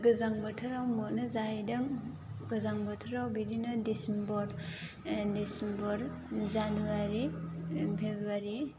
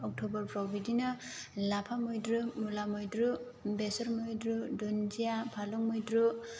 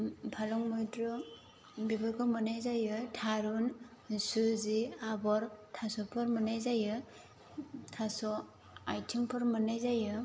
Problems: constant background noise